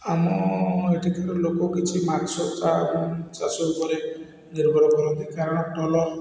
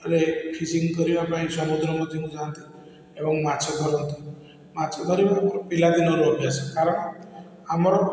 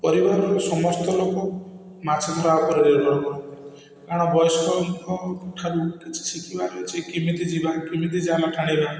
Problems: none marked